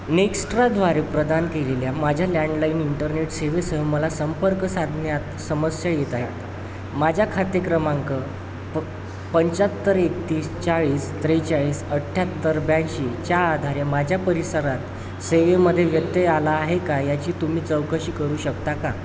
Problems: constant background noise